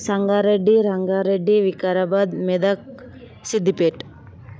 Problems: constant background noise